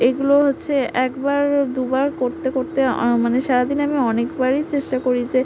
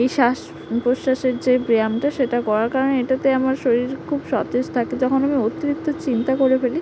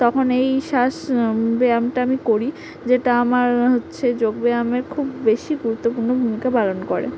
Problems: constant background noise